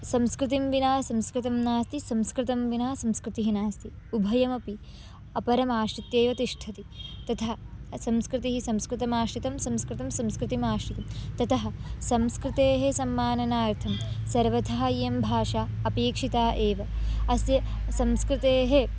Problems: none marked